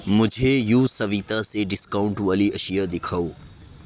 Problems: none marked